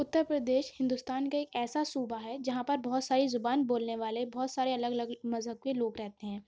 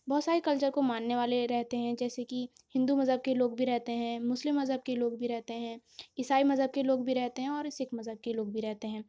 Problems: constant background noise